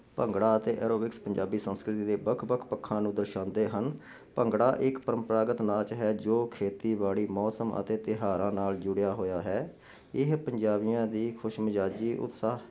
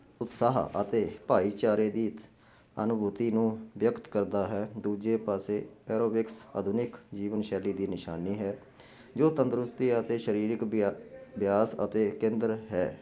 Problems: constant background noise